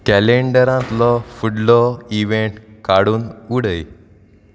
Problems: none marked